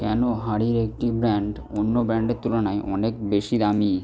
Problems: background sounds at intervals